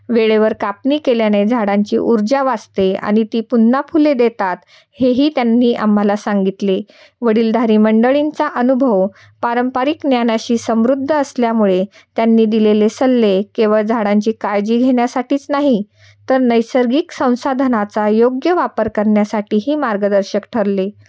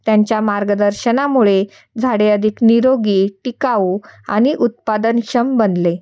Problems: none marked